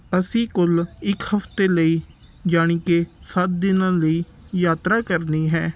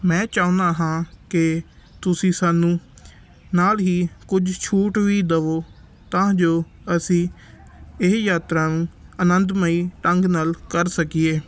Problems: background sounds at intervals